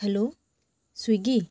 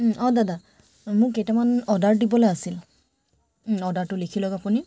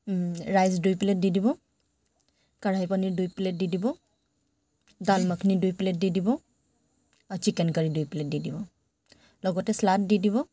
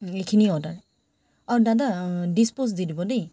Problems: none marked